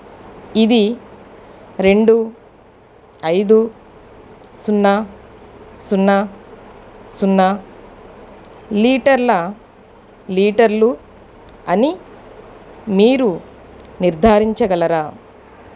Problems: none marked